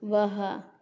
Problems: constant background noise